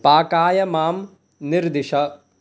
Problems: background conversations at intervals